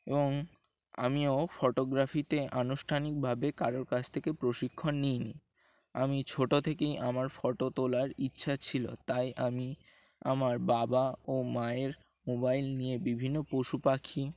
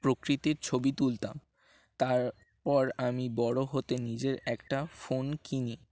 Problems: constant background noise